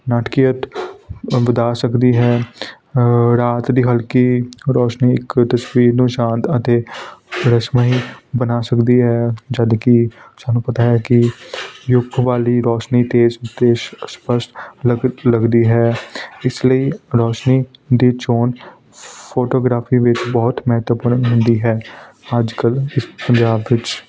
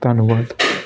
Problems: none marked